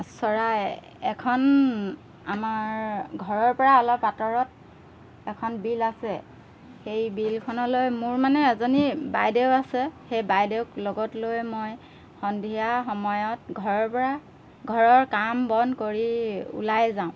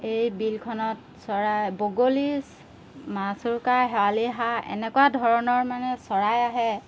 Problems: background sounds at intervals